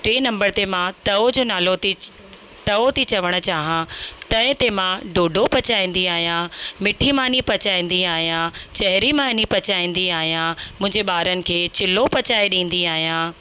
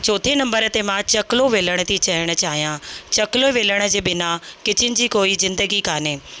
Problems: constant background noise